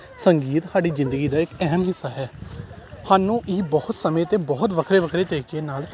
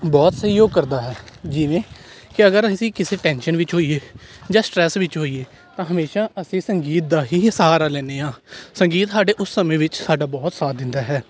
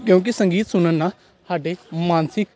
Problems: constant background noise, background conversations at intervals